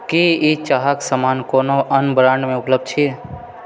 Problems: background conversations at intervals